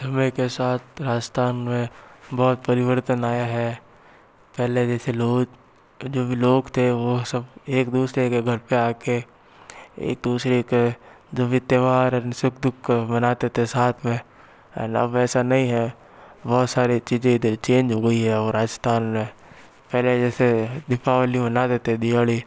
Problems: none marked